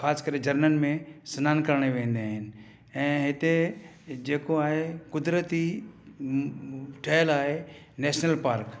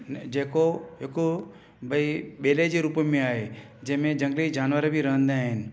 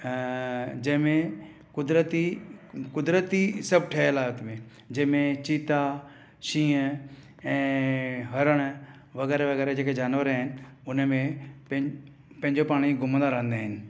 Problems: none marked